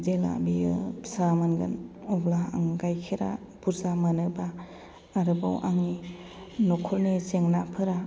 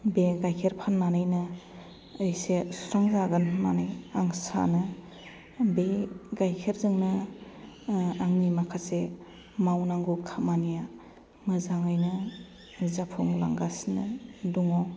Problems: none marked